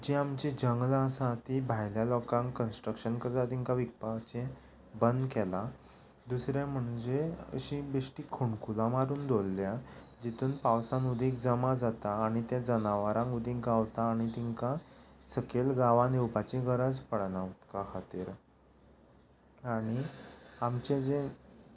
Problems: none marked